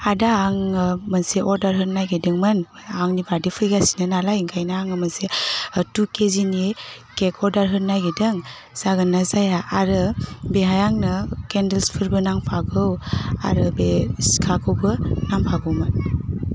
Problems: constant background noise